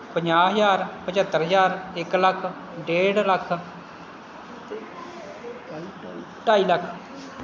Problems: constant background noise